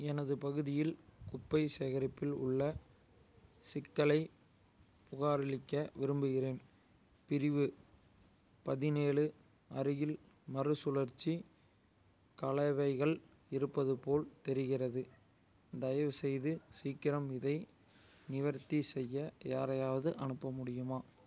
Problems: none marked